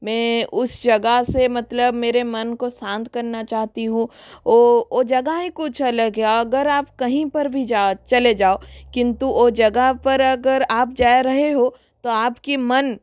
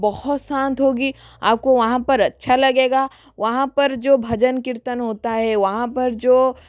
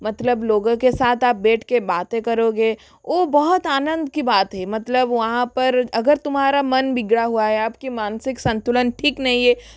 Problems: constant background noise